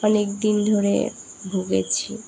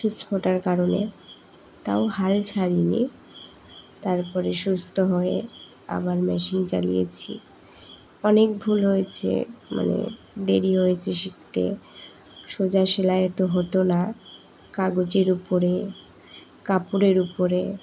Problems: background sounds at intervals